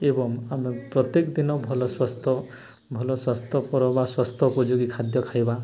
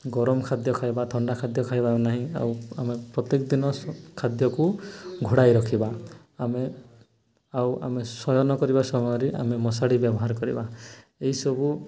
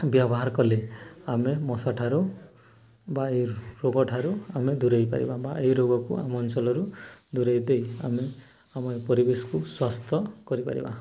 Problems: continuous background conversations